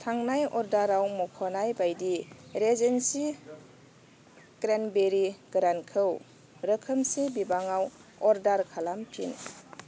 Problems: constant background noise